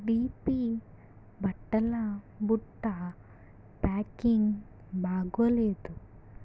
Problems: low volume